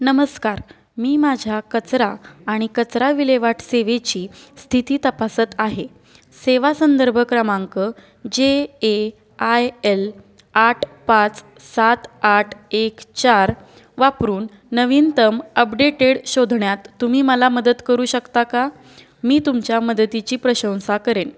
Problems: none marked